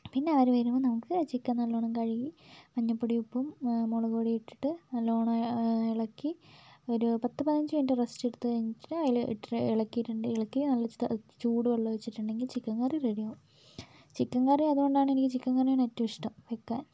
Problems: low volume